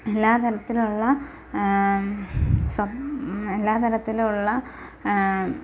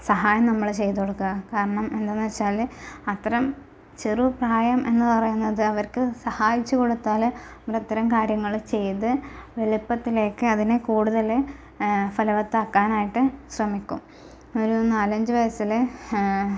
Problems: none marked